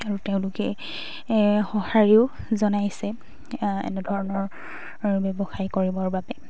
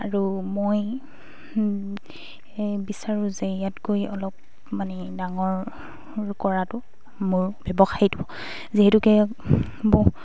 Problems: constant background noise